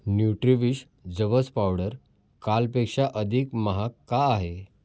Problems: none marked